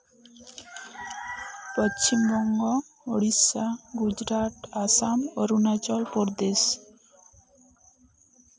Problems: none marked